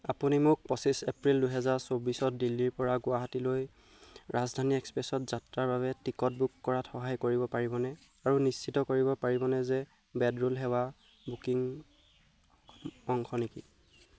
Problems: none marked